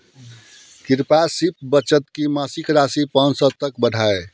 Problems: none marked